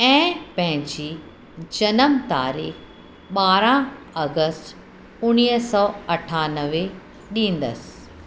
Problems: constant background noise, echo